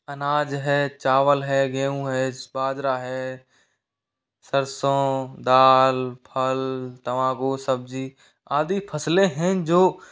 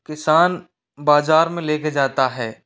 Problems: background sounds at intervals, echo